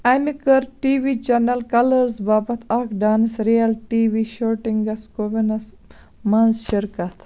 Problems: background sounds at intervals